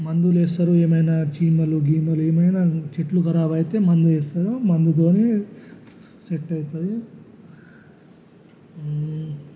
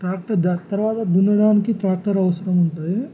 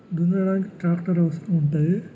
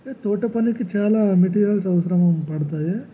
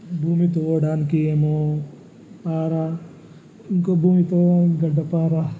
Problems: background sounds at intervals, low volume